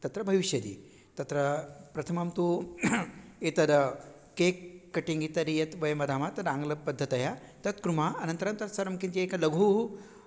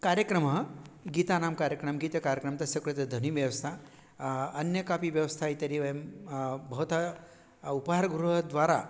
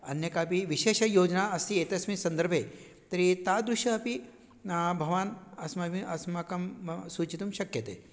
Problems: none marked